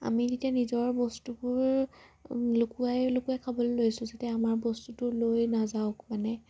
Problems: low volume